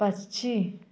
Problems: continuous background conversations